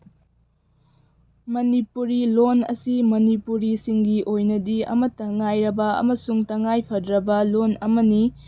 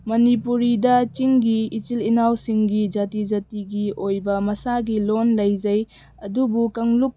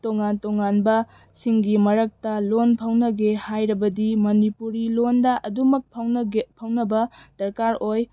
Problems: background sounds at intervals